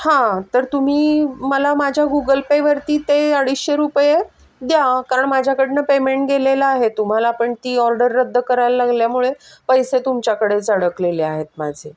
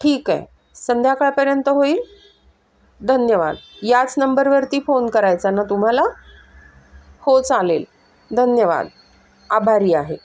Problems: none marked